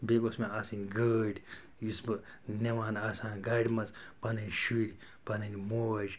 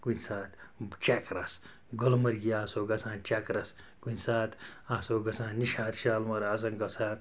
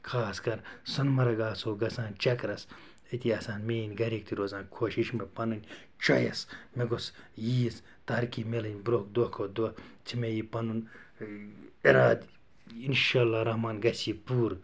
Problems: background sounds at intervals